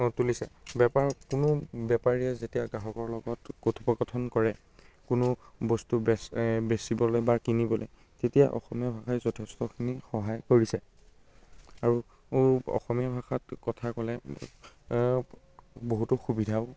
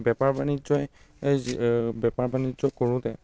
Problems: constant background noise